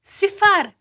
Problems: background sounds at intervals